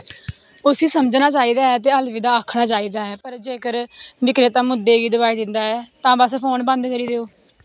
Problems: none marked